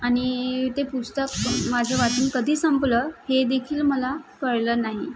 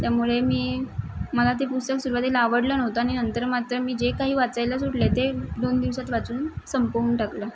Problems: constant background noise